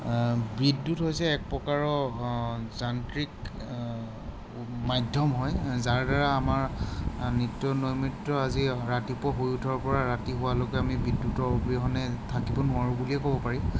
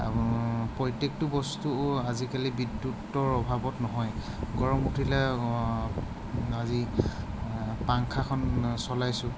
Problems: background sounds at intervals